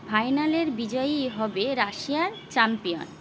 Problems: constant background noise